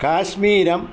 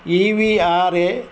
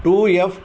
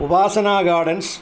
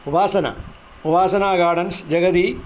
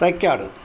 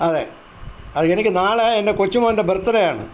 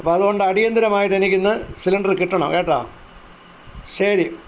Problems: constant background noise